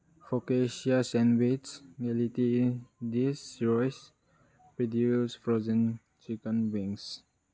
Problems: none marked